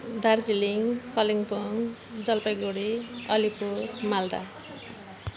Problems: constant background noise